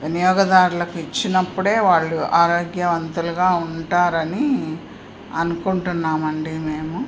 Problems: none marked